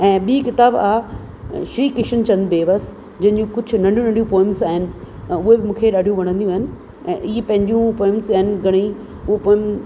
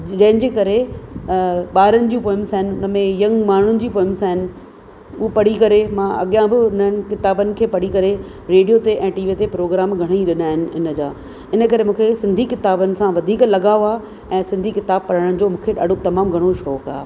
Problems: constant background noise, echo